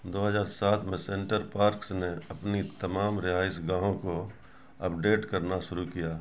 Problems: constant background noise